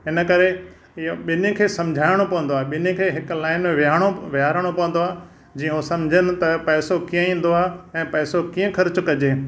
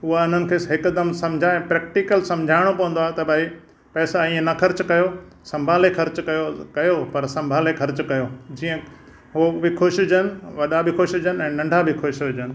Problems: none marked